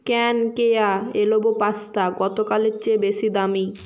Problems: background sounds at intervals